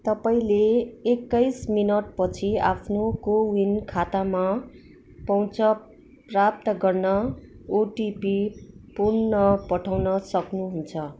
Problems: constant background noise